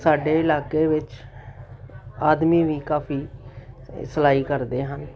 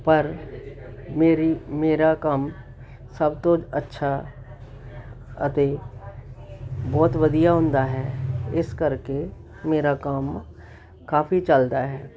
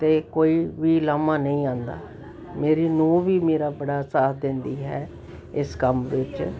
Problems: none marked